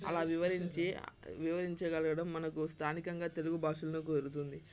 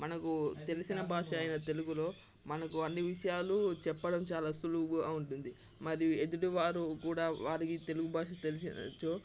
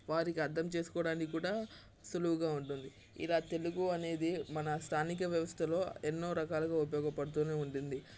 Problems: constant background noise, continuous background conversations